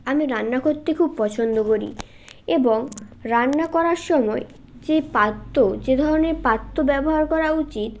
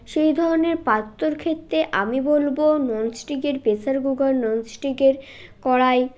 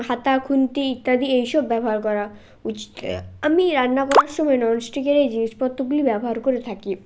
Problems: background sounds at intervals